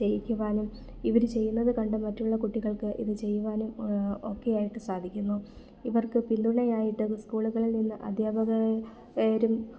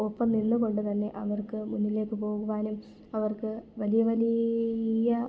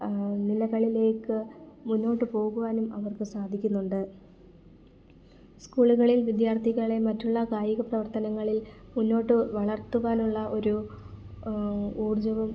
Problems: background sounds at intervals, low volume